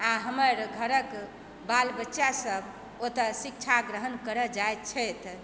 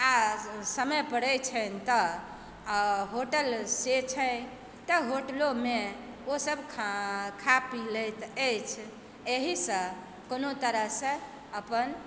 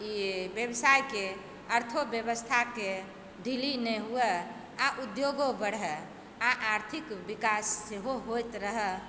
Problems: background sounds at intervals